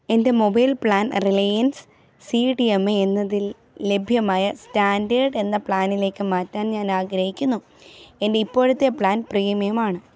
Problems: none marked